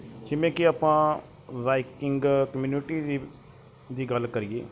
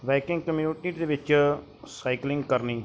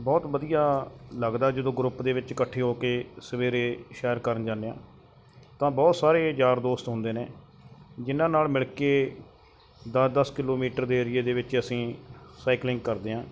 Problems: background sounds at intervals